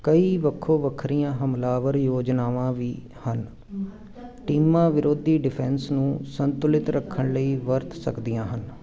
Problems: continuous background conversations